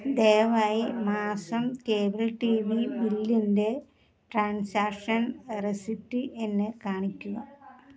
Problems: low volume